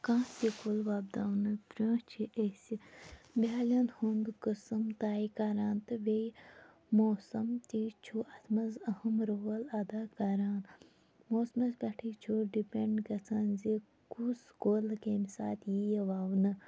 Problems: low volume